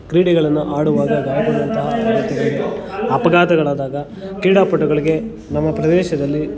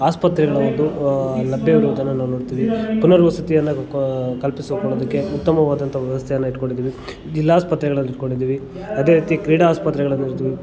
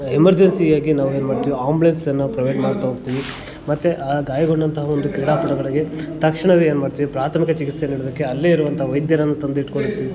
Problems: constant background noise